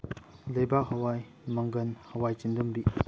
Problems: low volume